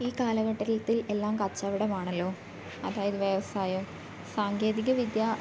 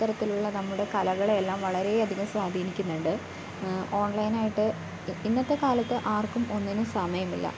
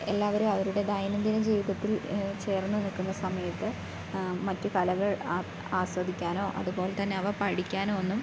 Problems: background sounds at intervals